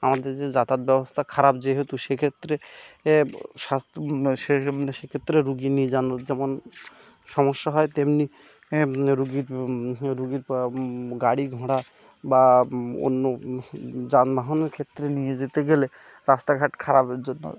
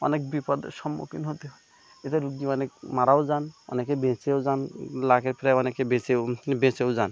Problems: background sounds at intervals